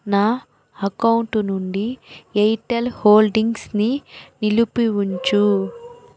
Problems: constant background noise